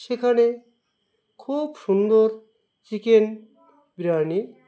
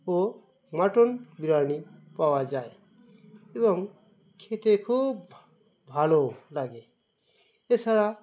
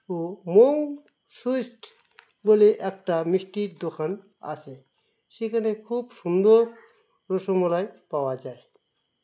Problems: constant background noise